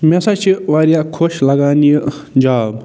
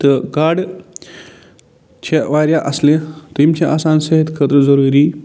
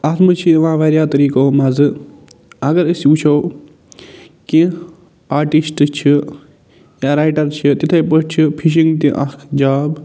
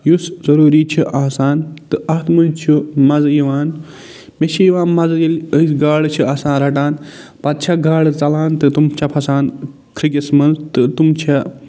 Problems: none marked